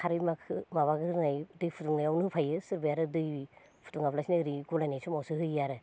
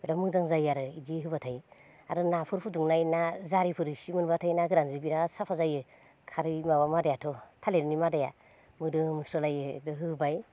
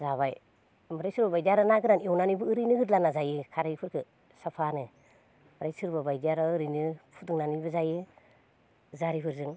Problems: none marked